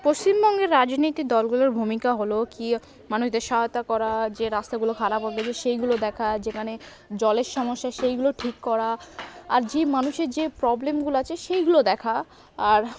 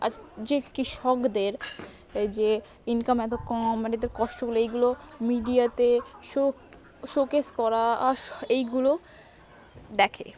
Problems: none marked